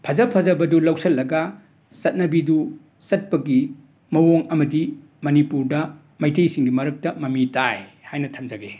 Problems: background sounds at intervals